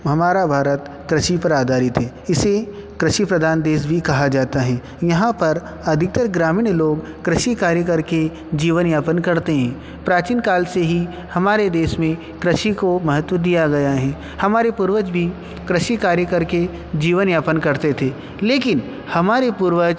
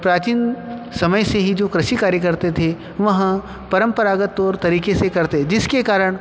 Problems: constant background noise, echo